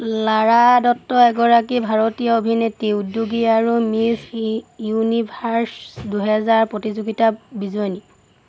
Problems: none marked